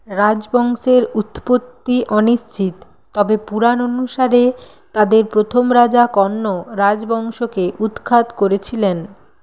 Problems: constant background noise